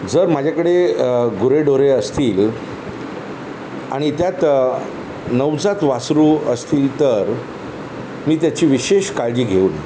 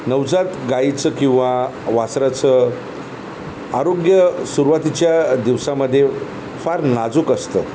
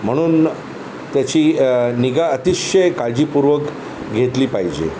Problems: none marked